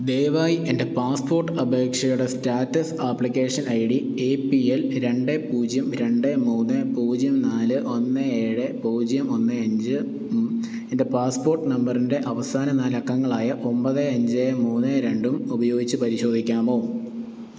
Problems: none marked